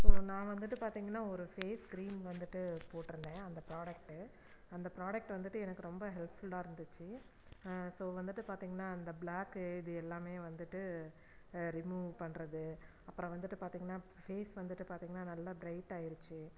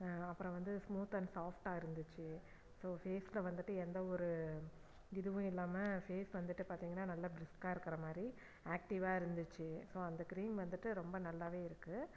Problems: low volume